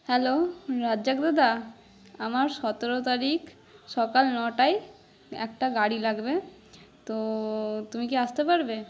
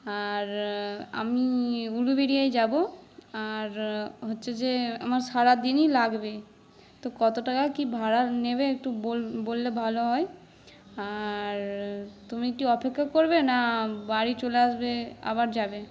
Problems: background sounds at intervals